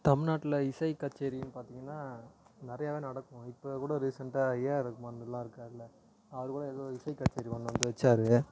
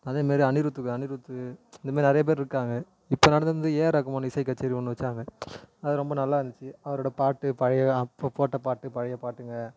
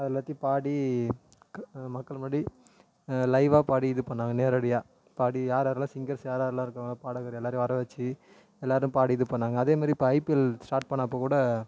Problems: low volume